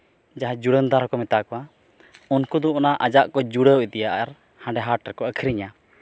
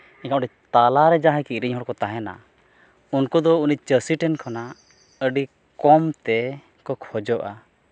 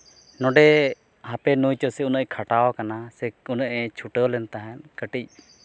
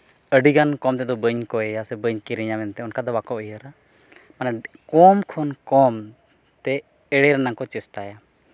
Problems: none marked